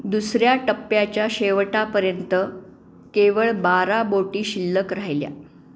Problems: none marked